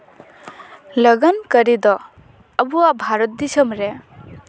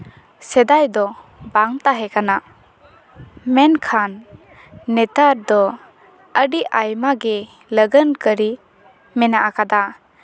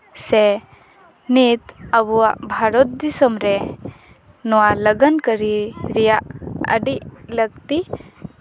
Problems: background sounds at intervals